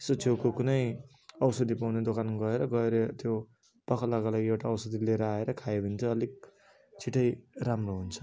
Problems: none marked